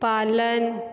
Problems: constant background noise